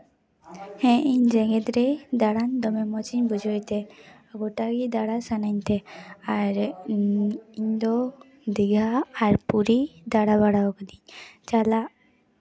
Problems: background conversations at intervals